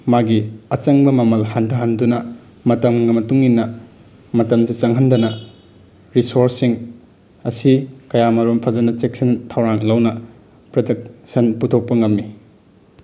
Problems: background sounds at intervals